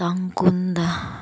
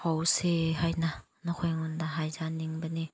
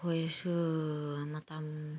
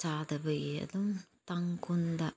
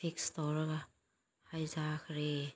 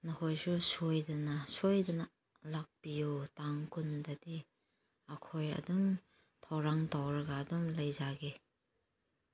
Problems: none marked